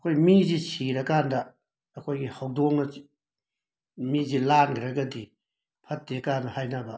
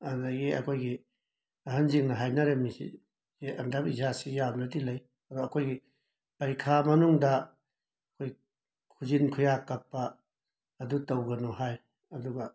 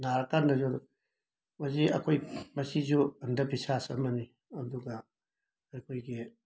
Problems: background sounds at intervals